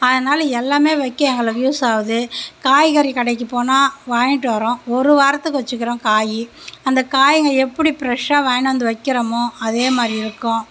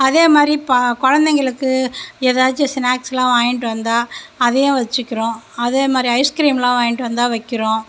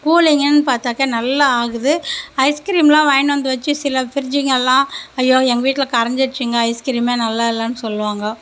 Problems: none marked